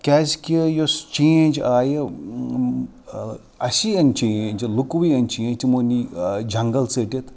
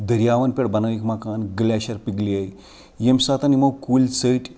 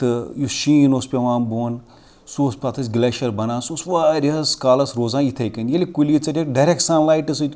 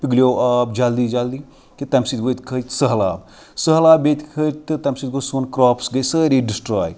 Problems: background sounds at intervals